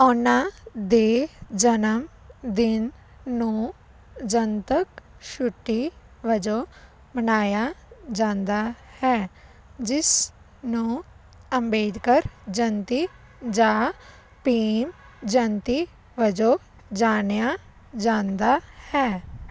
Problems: constant background noise